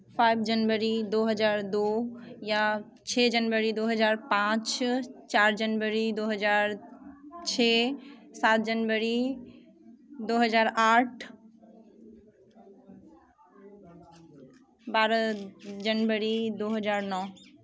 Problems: background sounds at intervals